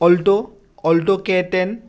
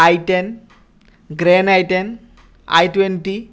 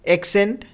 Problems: none marked